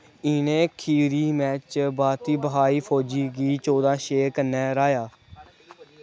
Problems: background sounds at intervals